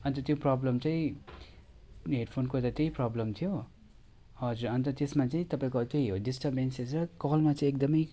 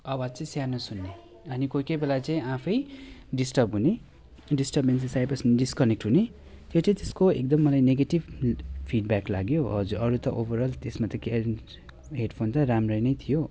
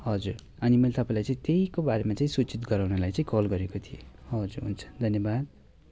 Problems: background conversations at intervals